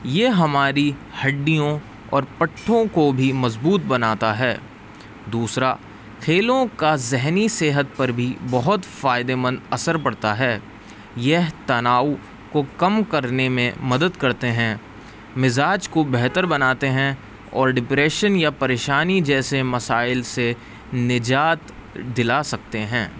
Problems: constant background noise